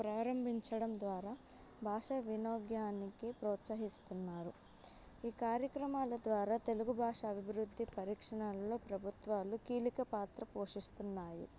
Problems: background sounds at intervals